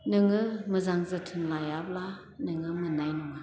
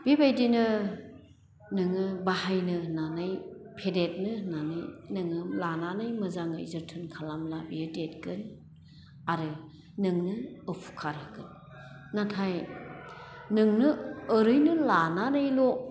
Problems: none marked